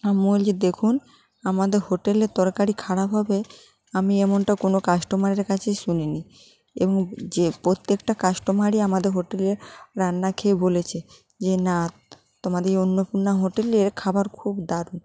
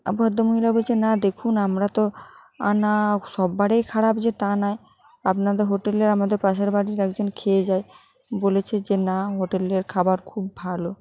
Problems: continuous background conversations